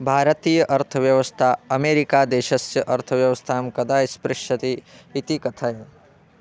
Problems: none marked